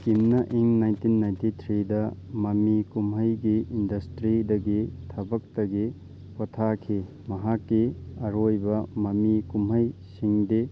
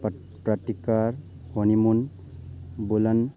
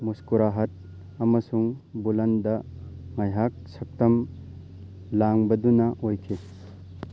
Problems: constant background noise, background conversations at intervals